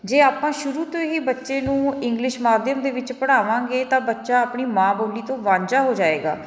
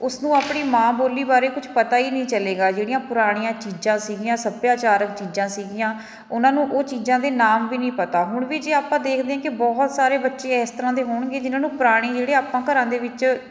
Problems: background sounds at intervals, continuous background conversations